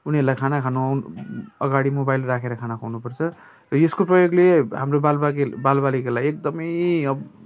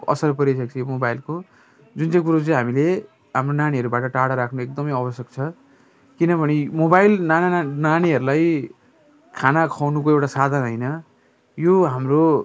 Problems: constant background noise